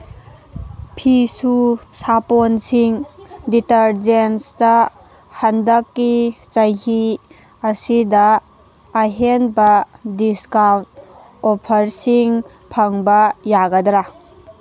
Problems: none marked